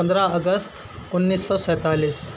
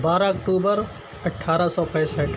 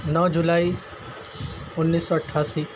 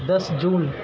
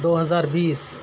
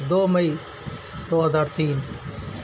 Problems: constant background noise, low volume